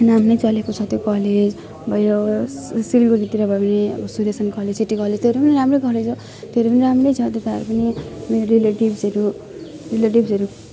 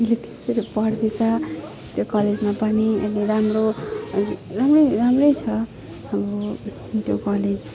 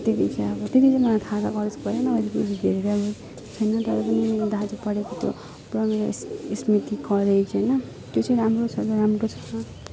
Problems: continuous background conversations